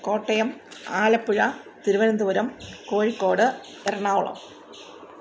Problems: background sounds at intervals